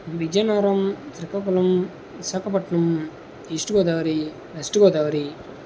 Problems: constant background noise